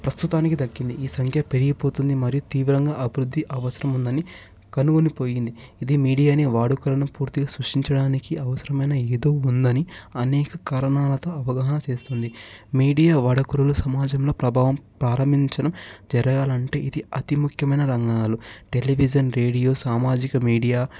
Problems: background sounds at intervals